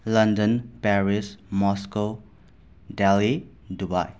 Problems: none marked